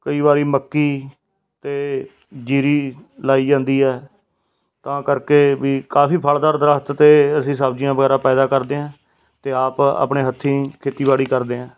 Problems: none marked